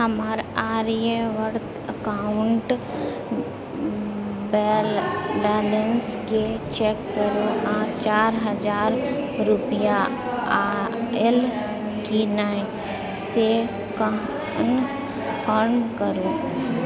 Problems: continuous background conversations